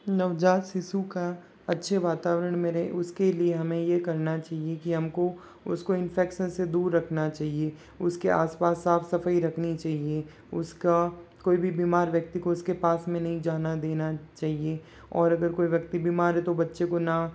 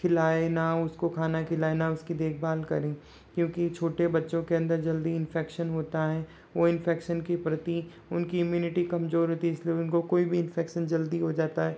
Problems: background sounds at intervals